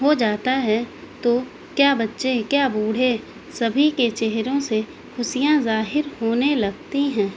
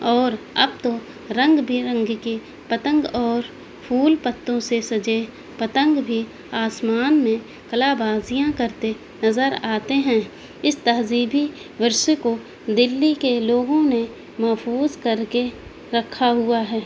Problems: constant background noise